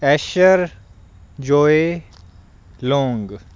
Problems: none marked